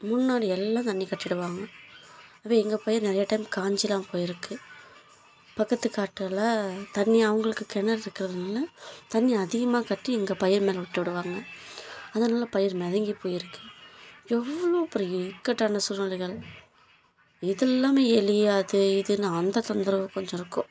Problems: low volume